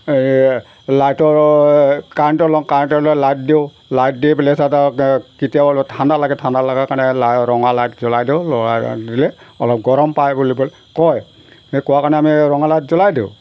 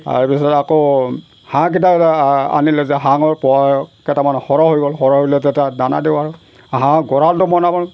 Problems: background sounds at intervals